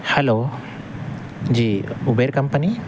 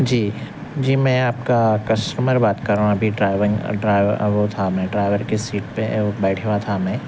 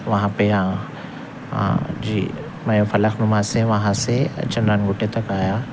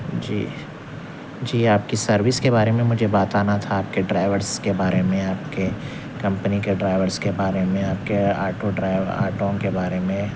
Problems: constant background noise